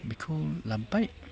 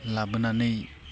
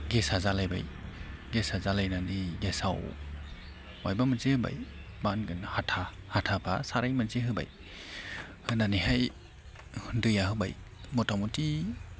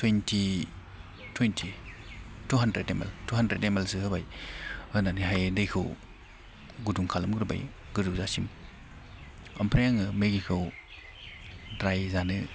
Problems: none marked